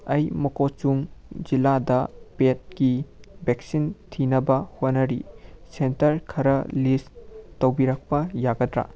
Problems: none marked